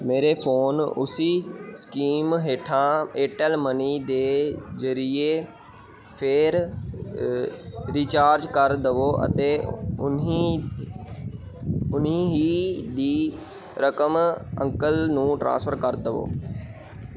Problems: background sounds at intervals